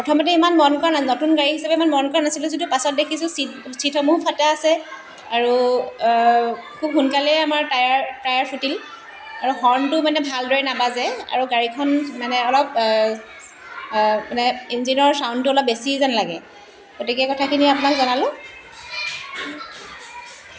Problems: constant background noise